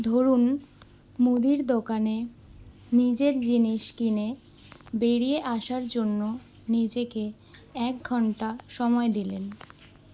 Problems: constant background noise